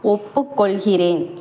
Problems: constant background noise